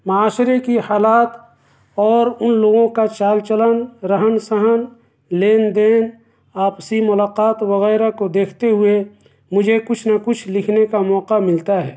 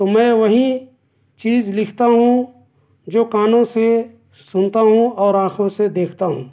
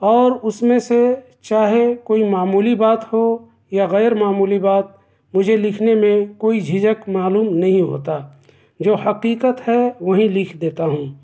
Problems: background sounds at intervals